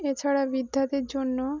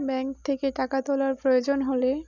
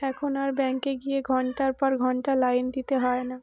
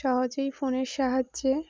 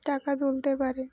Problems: background sounds at intervals